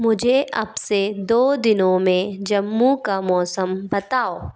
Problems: background sounds at intervals